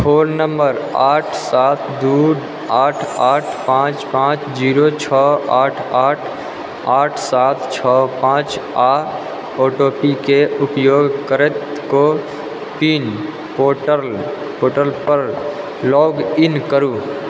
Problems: constant background noise